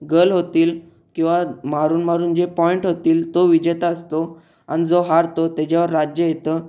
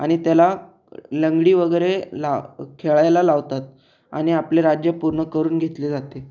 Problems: none marked